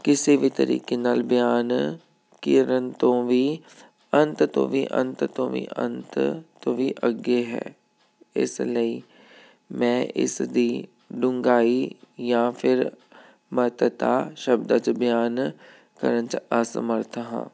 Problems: none marked